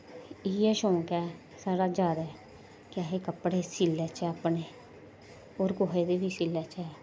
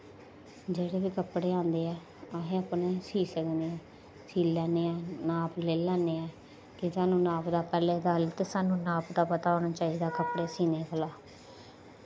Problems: echo